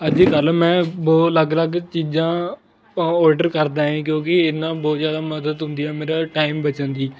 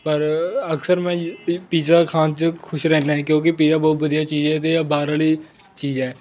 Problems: constant background noise, continuous background conversations